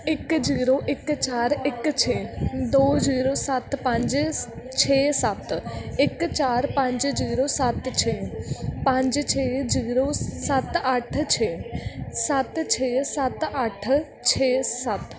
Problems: continuous background conversations